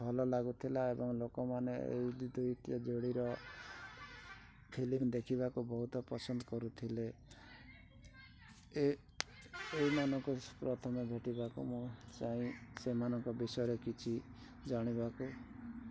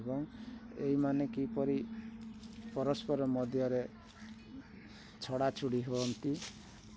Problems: constant background noise